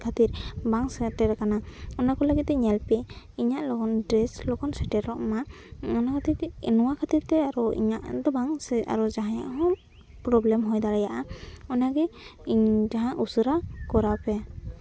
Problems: constant background noise, background conversations at intervals